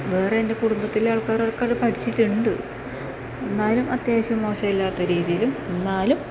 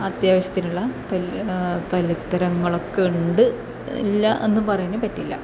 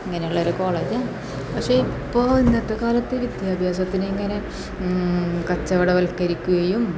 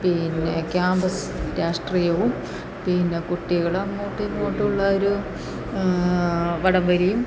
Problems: background sounds at intervals